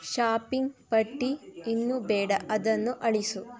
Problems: constant background noise